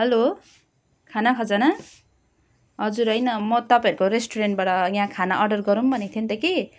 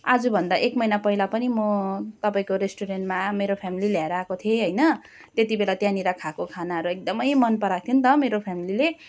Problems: none marked